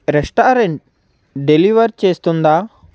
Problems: constant background noise